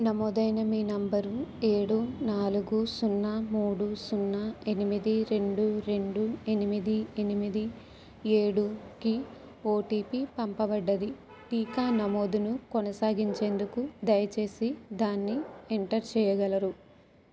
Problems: background sounds at intervals